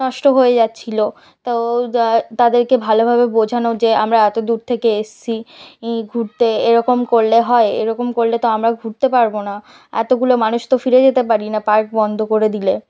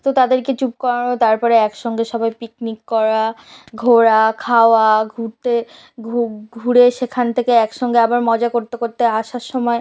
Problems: none marked